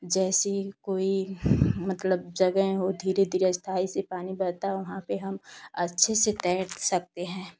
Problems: none marked